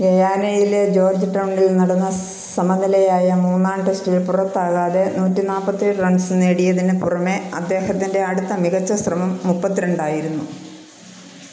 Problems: none marked